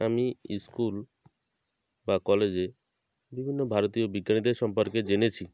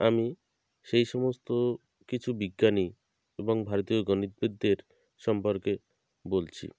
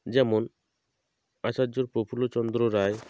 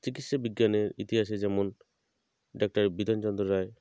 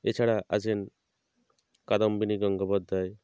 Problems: none marked